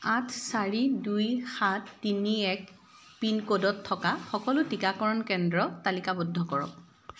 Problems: constant background noise